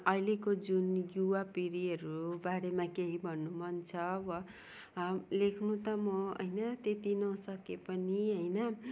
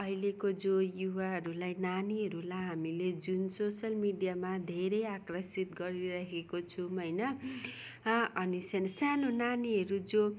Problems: background sounds at intervals